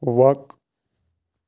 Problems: constant background noise